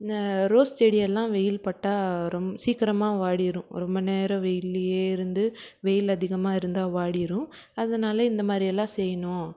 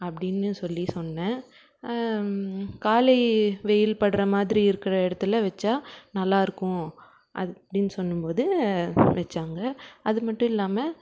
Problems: background sounds at intervals